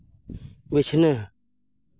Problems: none marked